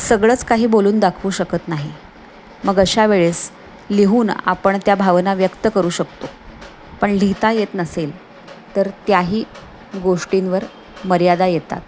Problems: none marked